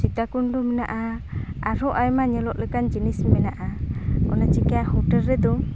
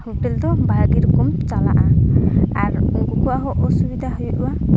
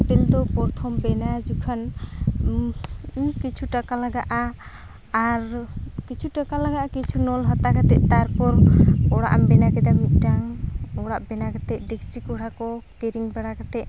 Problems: constant background noise, background conversations at intervals